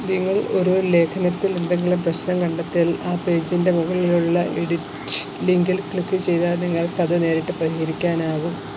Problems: none marked